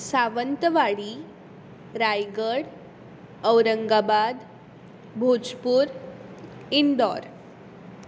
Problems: background sounds at intervals